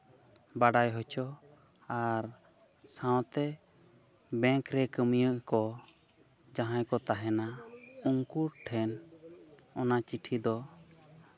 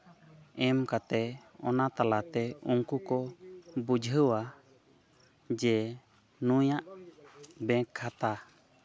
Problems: none marked